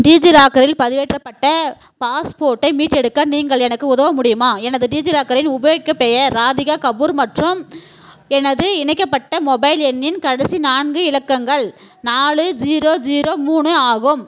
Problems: constant background noise